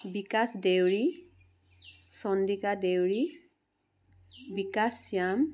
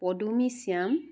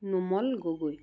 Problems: none marked